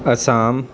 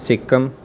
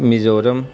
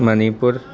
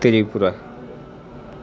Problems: constant background noise